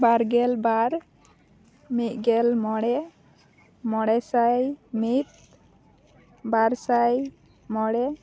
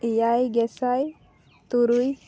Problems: background sounds at intervals